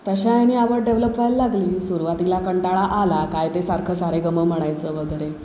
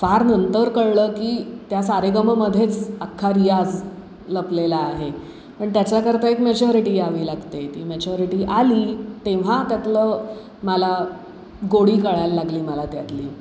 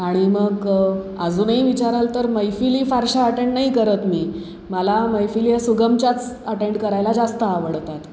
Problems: constant background noise